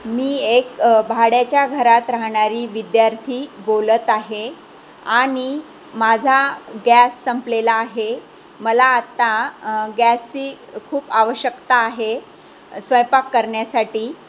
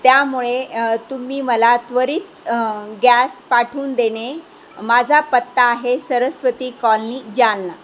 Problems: constant background noise